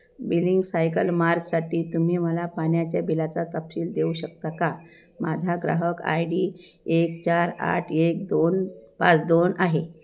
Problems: none marked